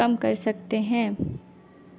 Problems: constant background noise, low volume